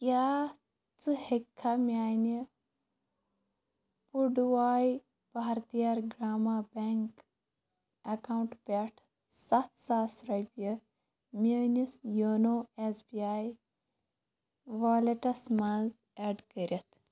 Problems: constant background noise